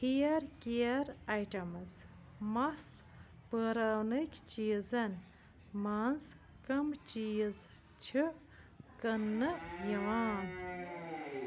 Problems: constant background noise, low volume